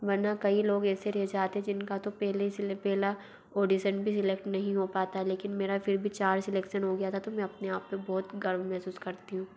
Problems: background sounds at intervals